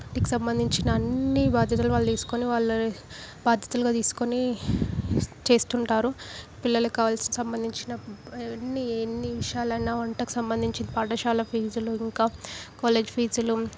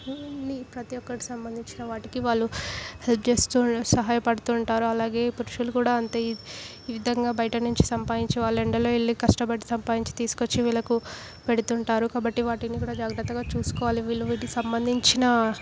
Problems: background sounds at intervals